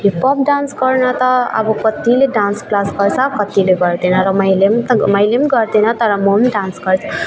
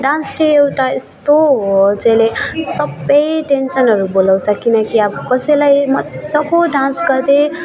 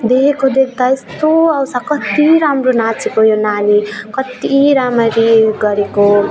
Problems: none marked